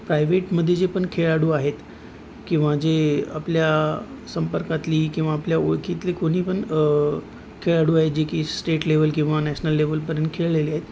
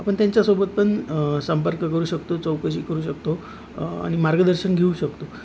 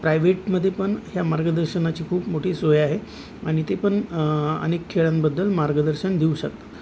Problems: none marked